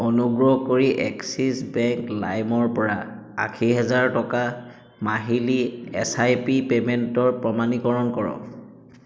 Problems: echo